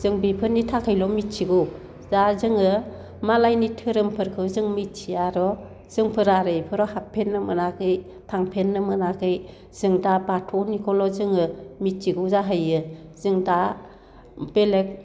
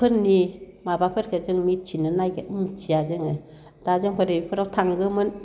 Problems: none marked